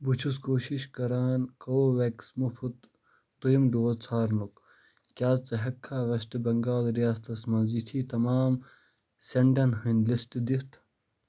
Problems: constant background noise